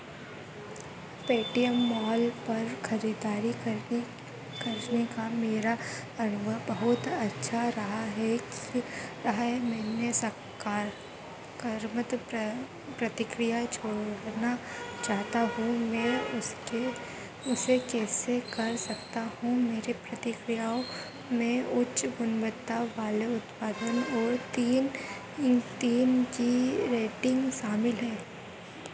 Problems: constant background noise